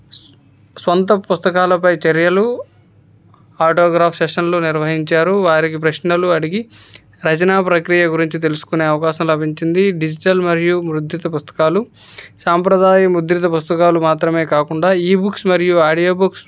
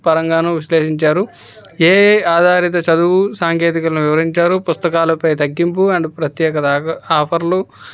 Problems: background conversations at intervals